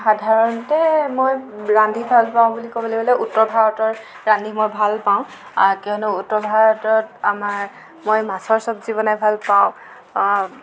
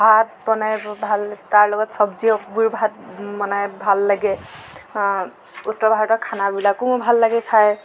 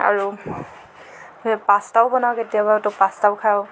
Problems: constant background noise, background conversations at intervals